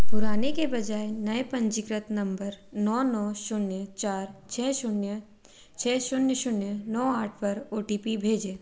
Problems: constant background noise